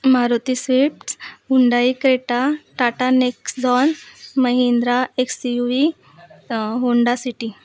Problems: none marked